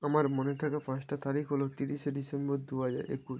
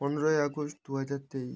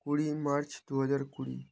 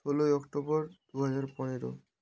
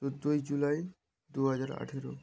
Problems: constant background noise